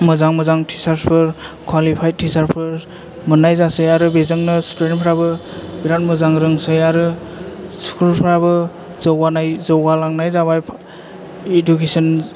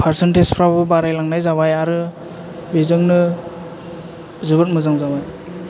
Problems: none marked